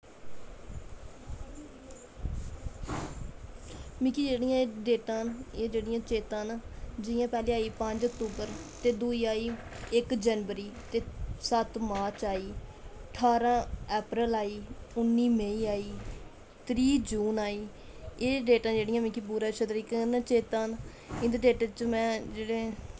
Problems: constant background noise